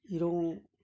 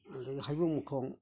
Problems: low volume